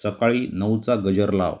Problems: constant background noise